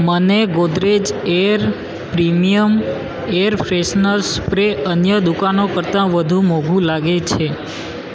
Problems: constant background noise